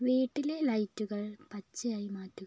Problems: low volume